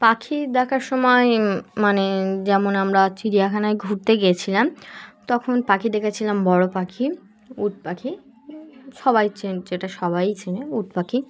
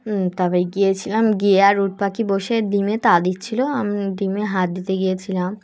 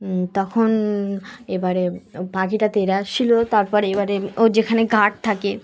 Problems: none marked